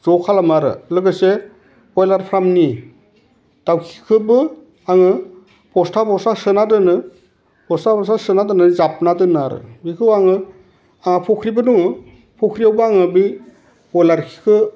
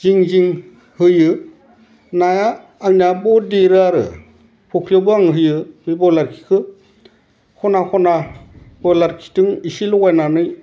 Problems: none marked